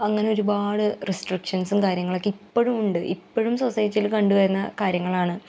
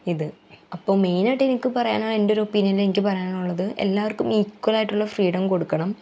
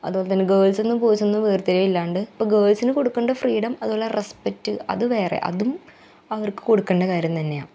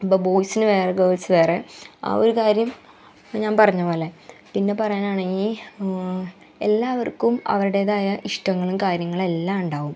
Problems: background sounds at intervals